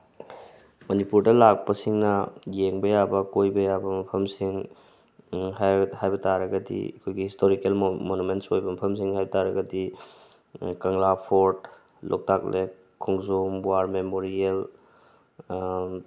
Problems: constant background noise